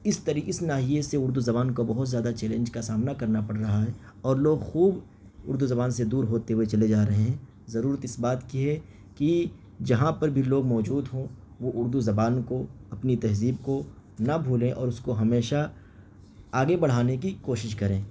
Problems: background sounds at intervals